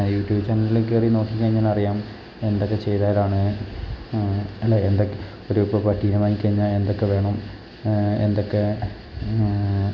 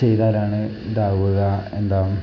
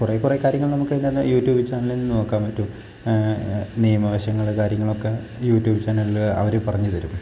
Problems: constant background noise